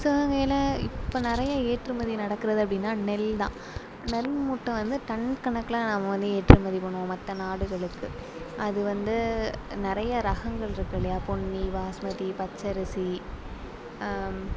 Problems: background sounds at intervals